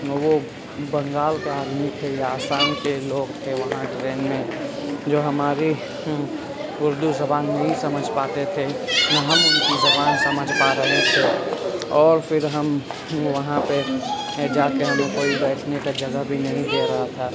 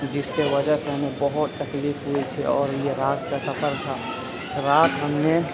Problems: constant background noise, low volume